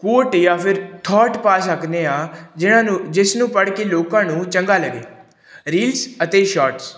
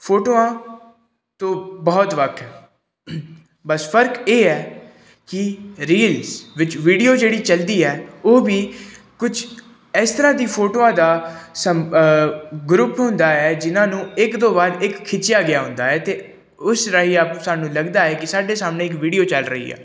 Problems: background sounds at intervals